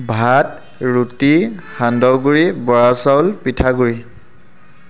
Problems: constant background noise